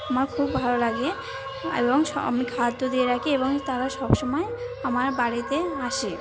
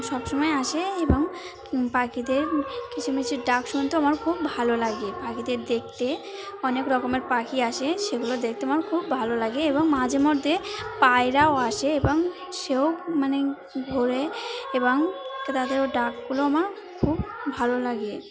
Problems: none marked